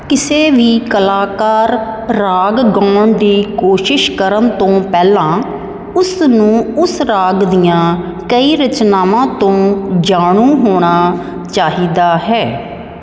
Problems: none marked